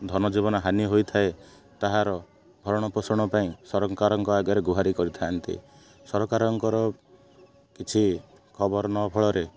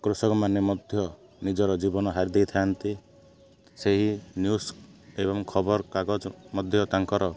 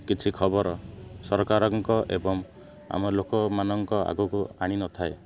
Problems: constant background noise